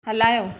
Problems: none marked